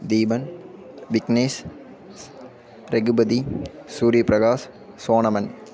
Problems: none marked